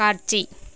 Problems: none marked